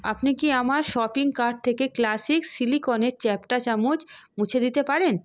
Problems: background sounds at intervals